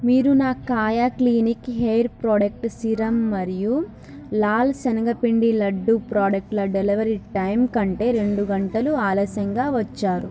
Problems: background conversations at intervals